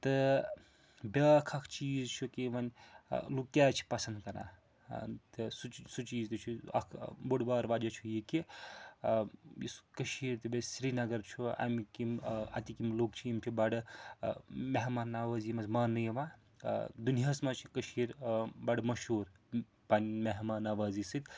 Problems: background sounds at intervals